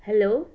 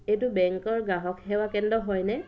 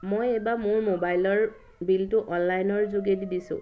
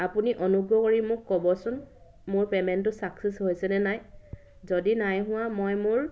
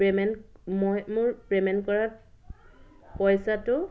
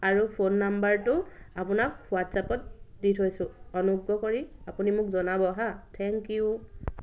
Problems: background sounds at intervals